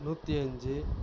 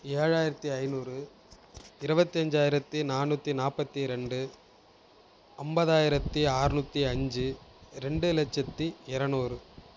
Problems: none marked